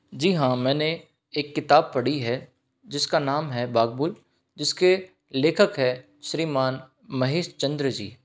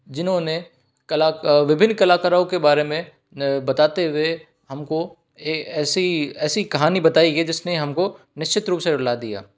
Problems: none marked